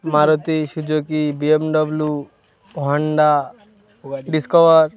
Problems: constant background noise, continuous background conversations